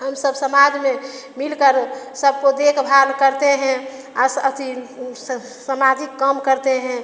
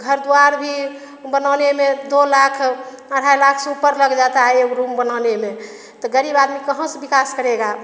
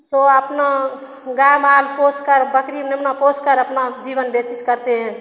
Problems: constant background noise, echo